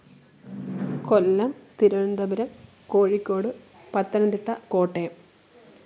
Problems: background sounds at intervals, low volume